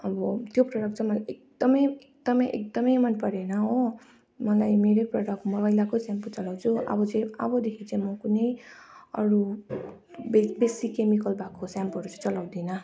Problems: continuous background conversations